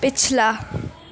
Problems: none marked